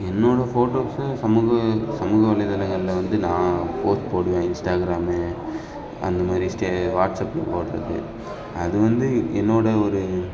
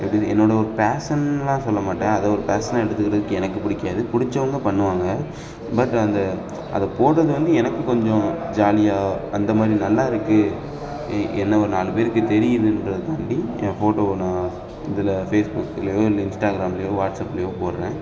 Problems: constant background noise, background conversations at intervals